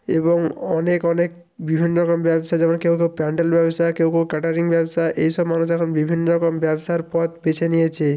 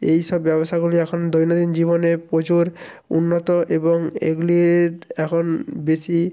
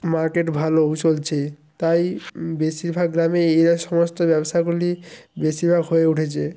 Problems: background sounds at intervals